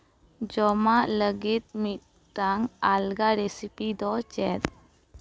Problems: none marked